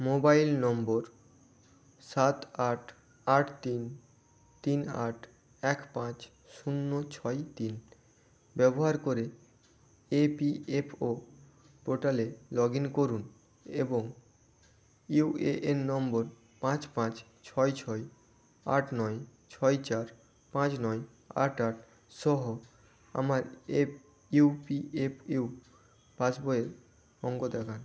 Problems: constant background noise